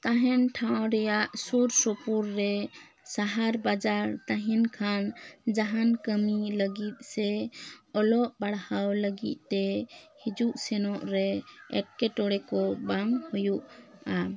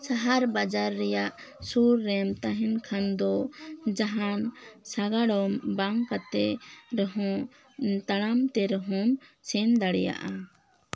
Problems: none marked